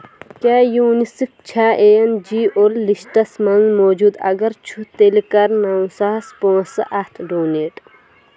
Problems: constant background noise